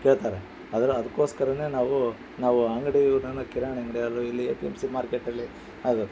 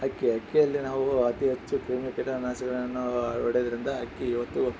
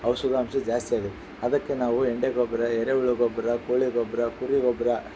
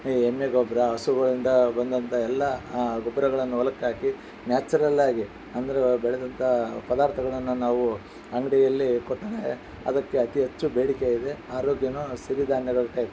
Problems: background sounds at intervals